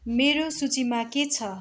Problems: constant background noise